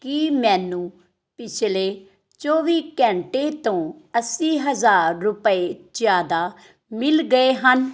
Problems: none marked